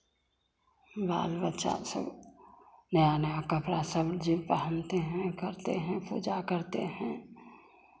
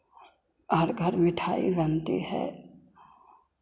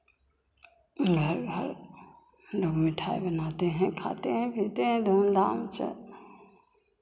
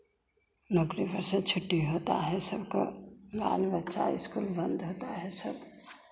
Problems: constant background noise, echo